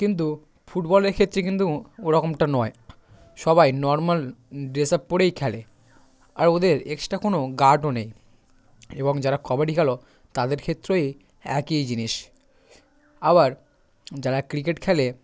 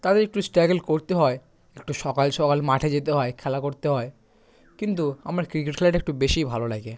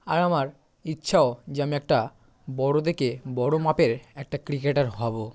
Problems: background sounds at intervals, background conversations at intervals